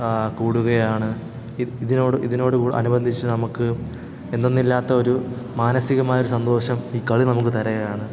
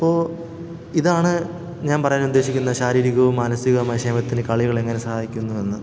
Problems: background sounds at intervals